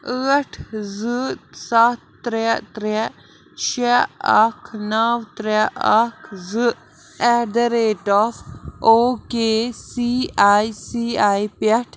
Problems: constant background noise